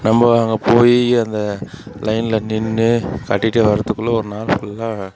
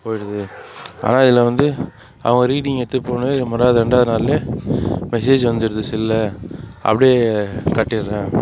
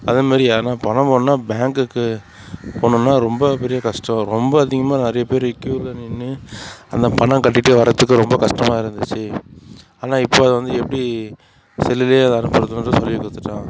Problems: none marked